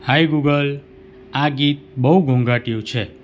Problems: none marked